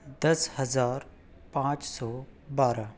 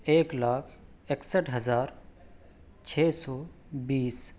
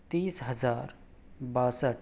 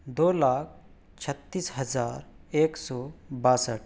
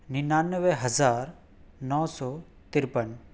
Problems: none marked